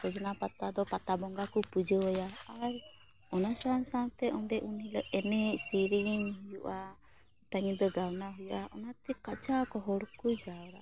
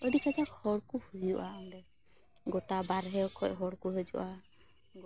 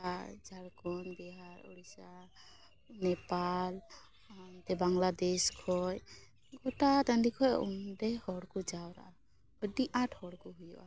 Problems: background sounds at intervals